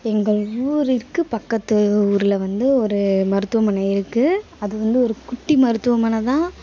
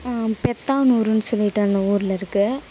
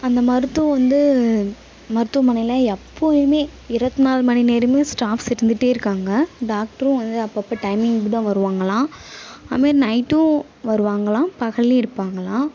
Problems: background sounds at intervals